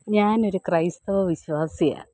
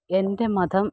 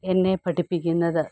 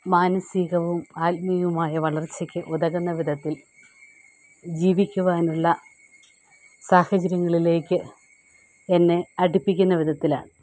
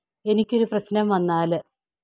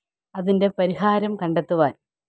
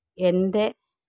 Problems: background sounds at intervals